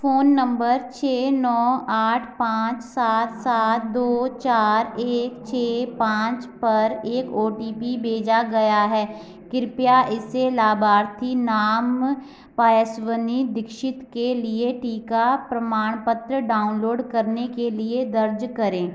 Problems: constant background noise